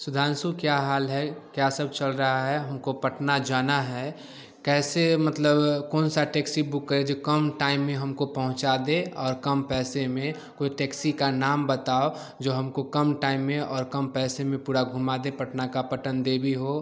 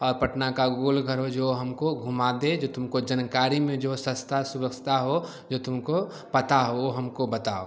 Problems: none marked